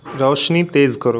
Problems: constant background noise